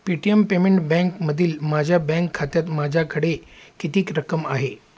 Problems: constant background noise